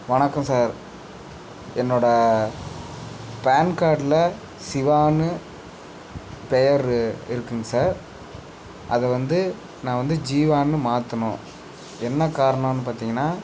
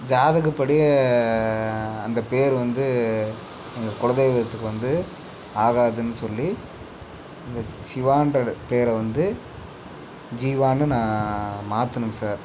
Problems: background sounds at intervals